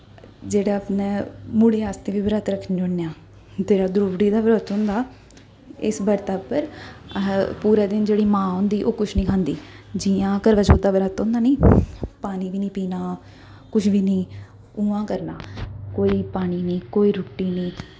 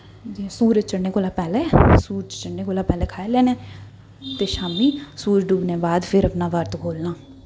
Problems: none marked